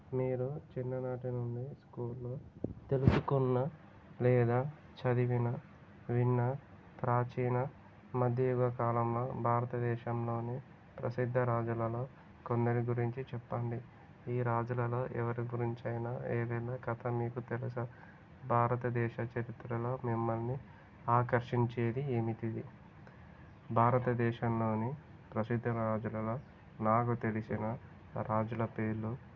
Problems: constant background noise, low volume